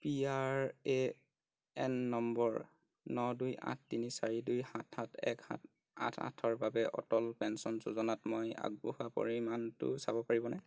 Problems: none marked